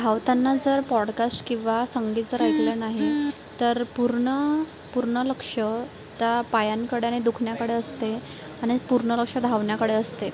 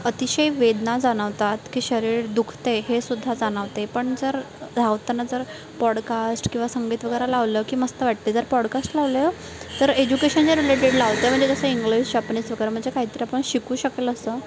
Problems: constant background noise